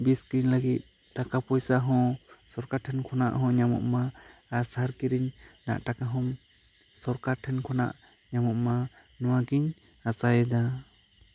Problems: constant background noise